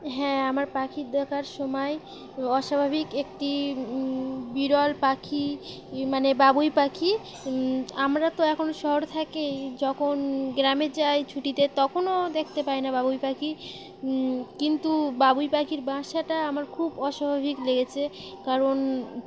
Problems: none marked